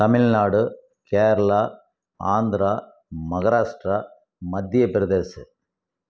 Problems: none marked